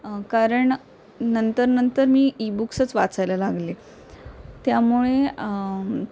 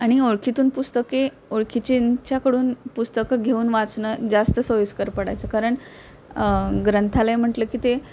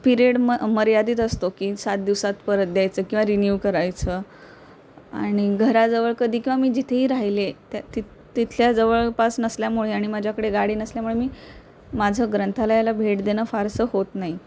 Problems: constant background noise